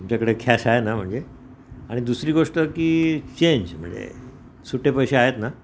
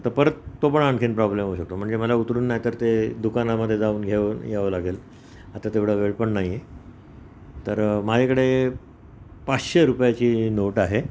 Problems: none marked